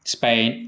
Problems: constant background noise